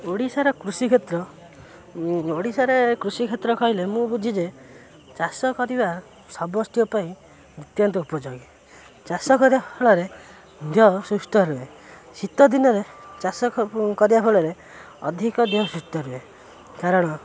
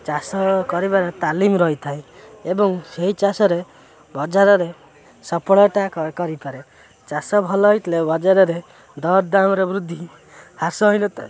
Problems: constant background noise